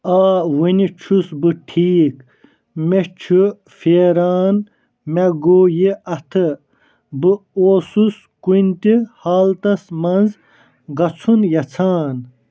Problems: none marked